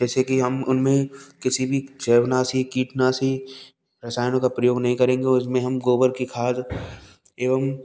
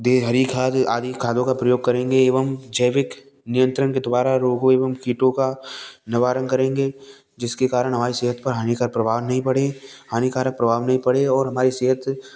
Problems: none marked